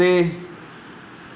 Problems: none marked